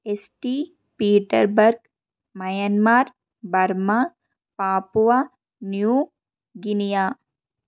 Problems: constant background noise